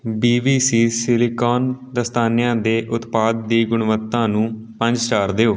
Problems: background conversations at intervals